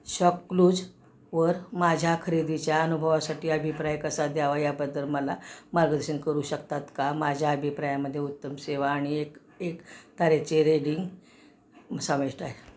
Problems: constant background noise, background conversations at intervals